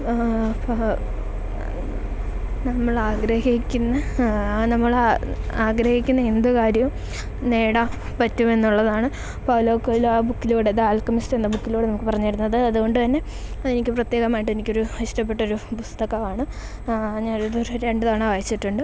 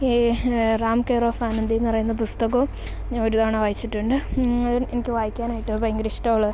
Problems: none marked